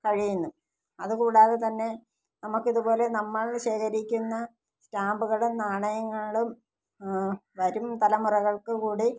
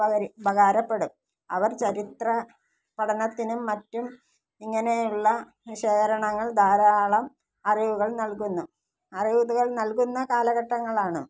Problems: low volume